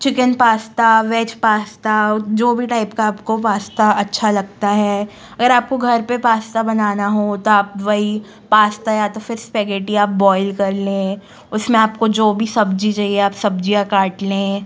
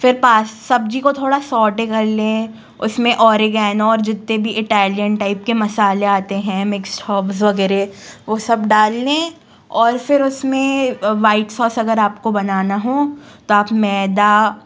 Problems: constant background noise